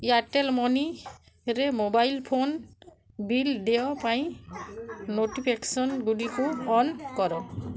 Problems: low volume